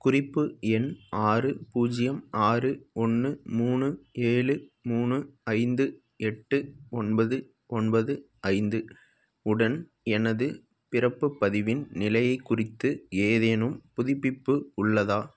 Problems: background sounds at intervals